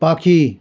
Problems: continuous background conversations